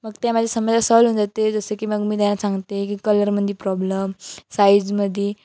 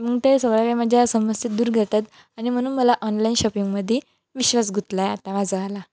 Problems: none marked